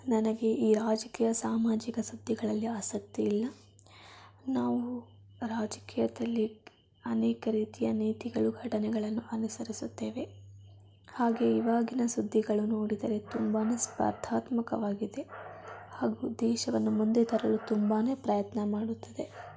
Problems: background sounds at intervals